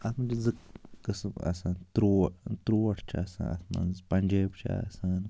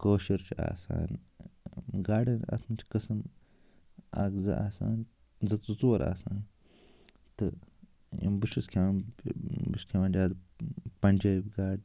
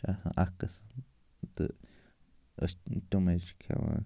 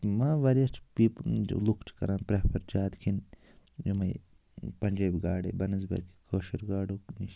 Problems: constant background noise